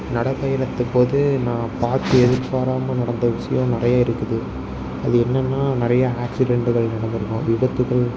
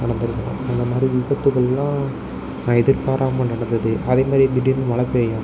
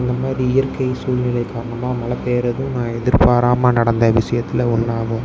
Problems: background sounds at intervals